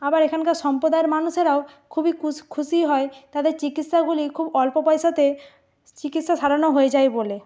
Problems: none marked